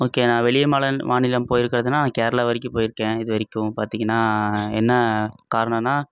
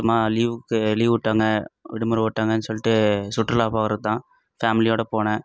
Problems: none marked